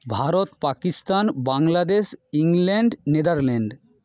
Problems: none marked